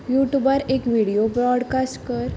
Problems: constant background noise